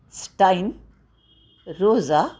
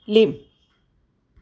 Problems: constant background noise